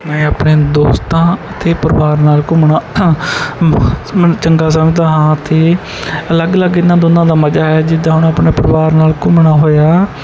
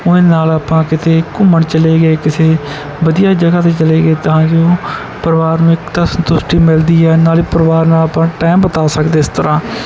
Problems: background sounds at intervals